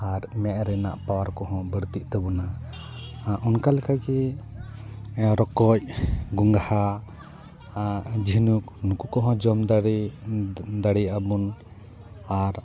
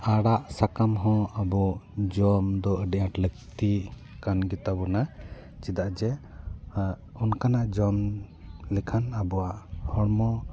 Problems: continuous background conversations